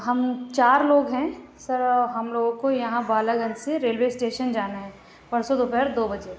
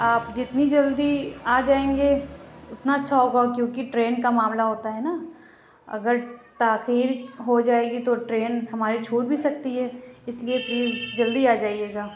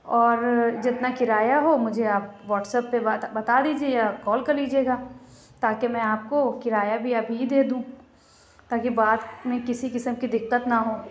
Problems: background sounds at intervals